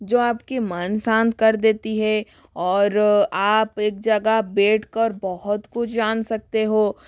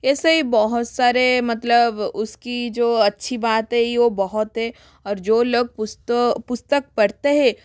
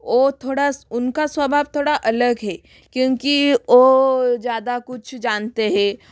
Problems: constant background noise